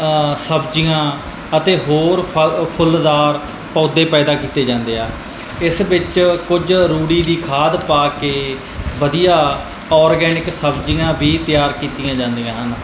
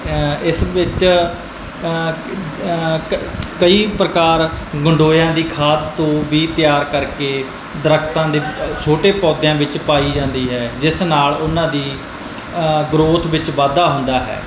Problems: none marked